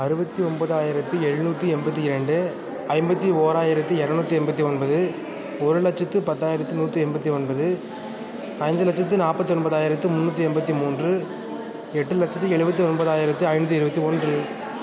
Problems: constant background noise